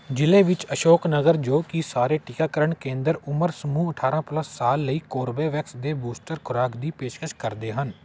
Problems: none marked